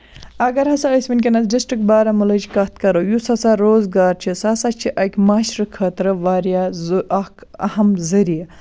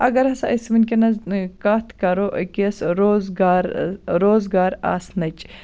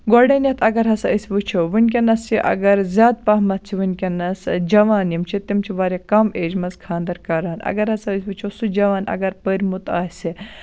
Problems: constant background noise